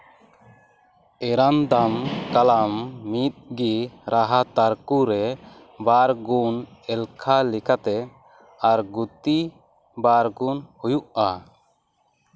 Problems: constant background noise